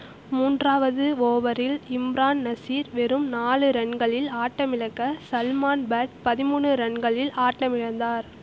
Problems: constant background noise